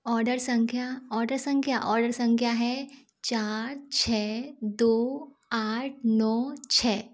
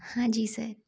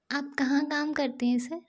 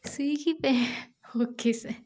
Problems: constant background noise